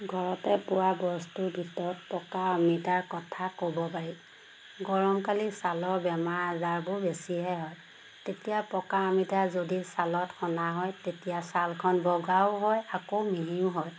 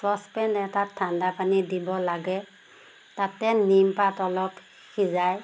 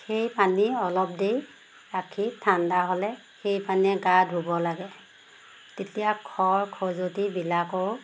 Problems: constant background noise